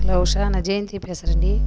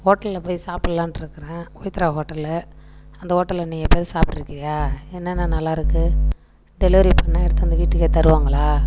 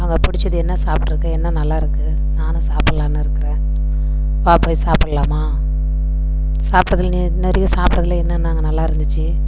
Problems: constant background noise